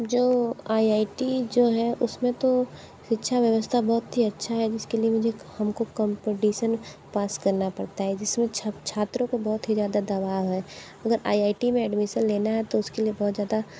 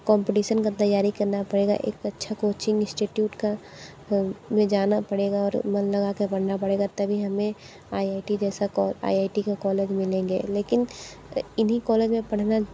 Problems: none marked